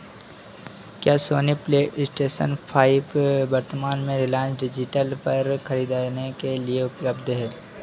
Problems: none marked